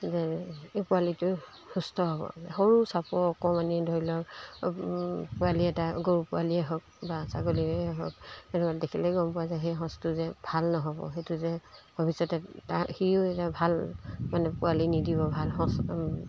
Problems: constant background noise